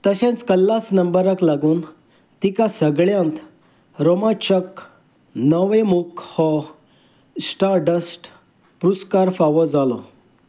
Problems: none marked